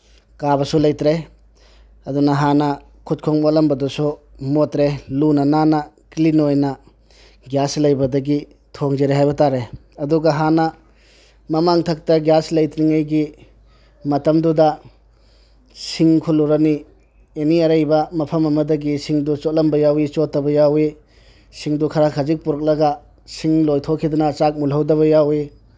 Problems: none marked